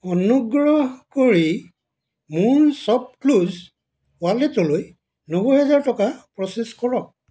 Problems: none marked